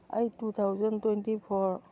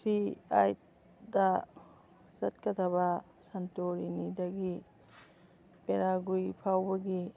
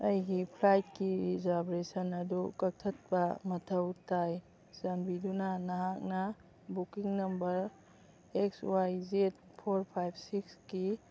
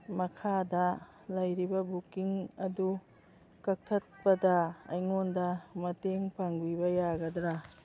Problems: background conversations at intervals